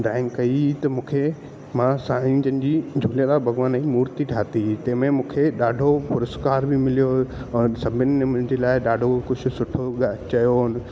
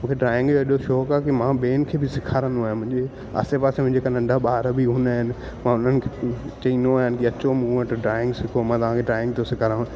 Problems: constant background noise, echo